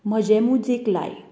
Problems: constant background noise